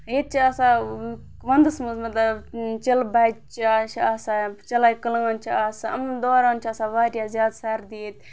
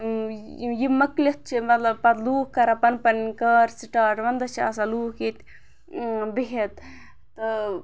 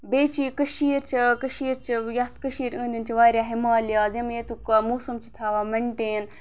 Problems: background sounds at intervals